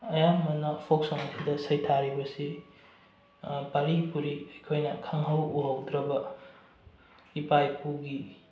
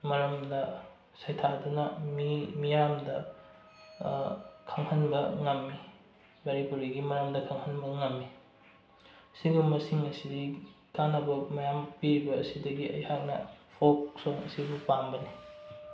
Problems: low volume